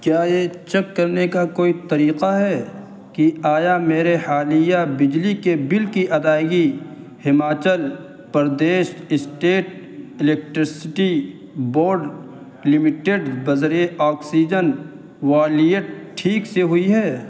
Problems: constant background noise